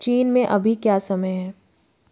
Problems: background sounds at intervals